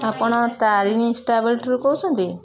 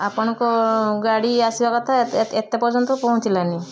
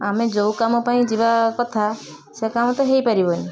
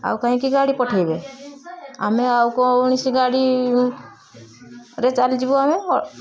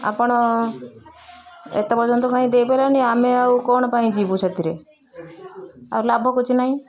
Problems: constant background noise, continuous background conversations